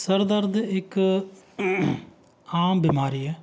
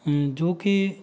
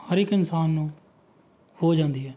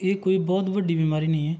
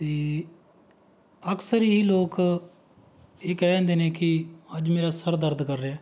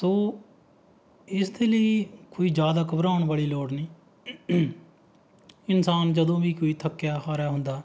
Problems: background sounds at intervals